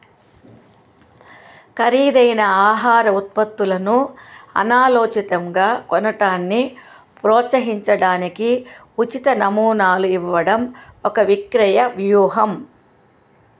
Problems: constant background noise